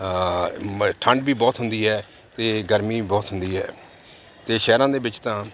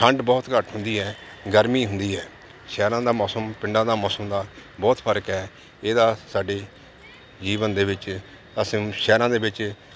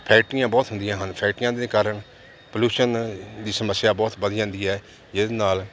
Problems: constant background noise